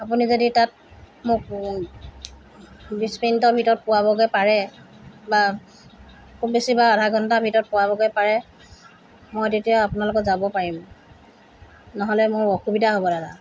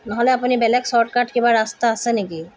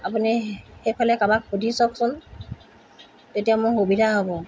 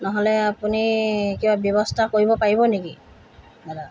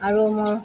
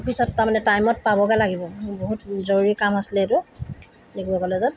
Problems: constant background noise